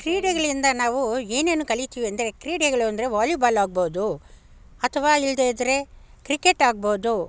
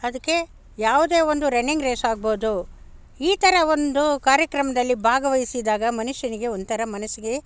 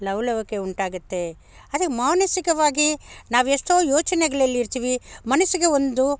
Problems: none marked